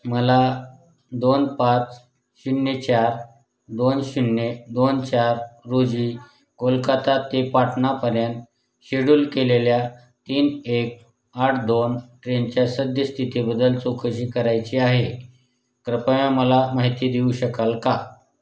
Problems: background sounds at intervals, background conversations at intervals